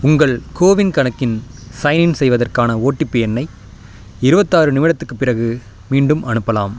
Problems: constant background noise